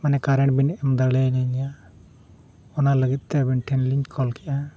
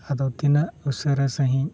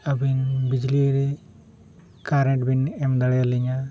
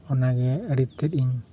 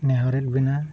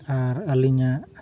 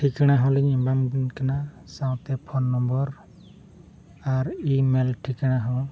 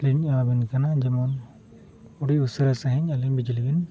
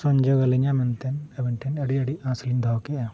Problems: none marked